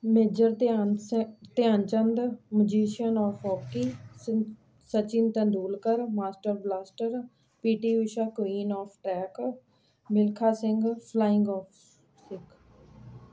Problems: none marked